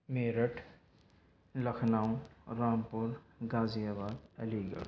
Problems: background sounds at intervals